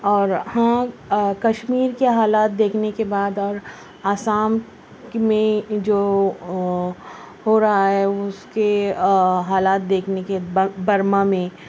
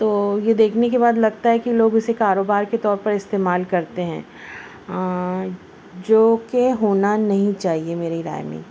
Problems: constant background noise, low volume